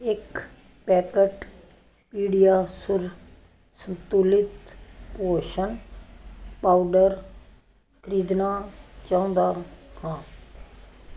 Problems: none marked